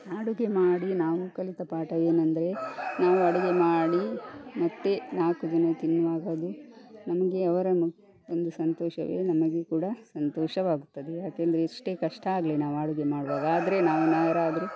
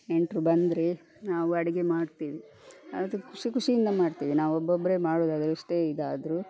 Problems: background sounds at intervals